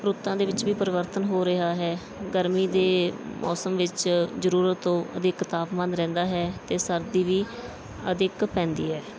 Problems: background sounds at intervals, background conversations at intervals